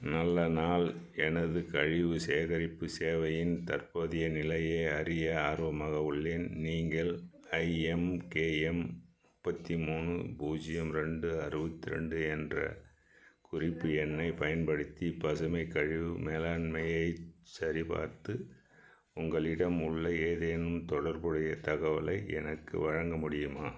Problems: background sounds at intervals